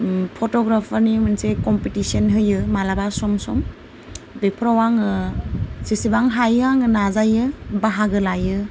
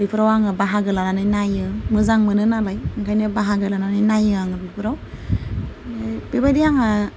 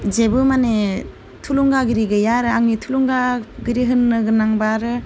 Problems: low volume